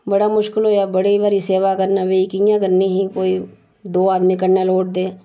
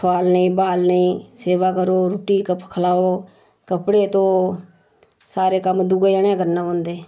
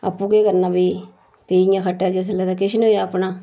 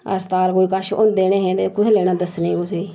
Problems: none marked